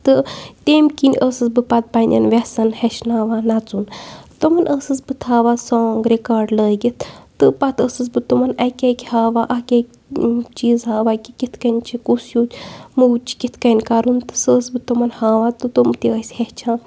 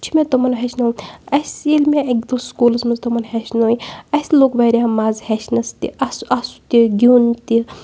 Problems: background sounds at intervals